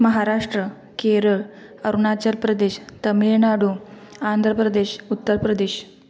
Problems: background conversations at intervals